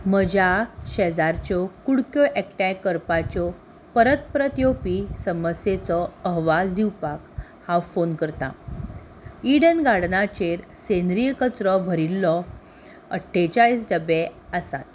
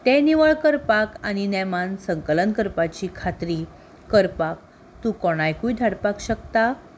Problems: constant background noise